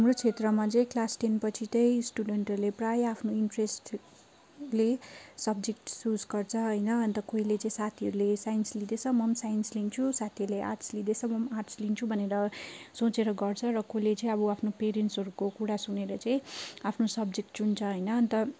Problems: background sounds at intervals